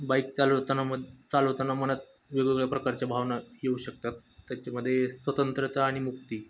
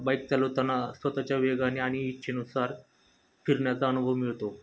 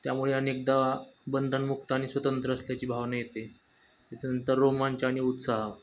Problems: none marked